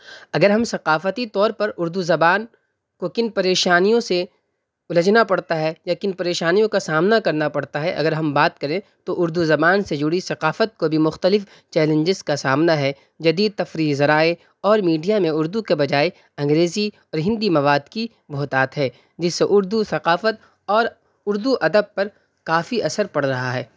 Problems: constant background noise